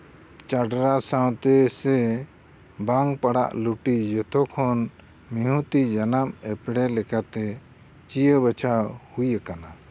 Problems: constant background noise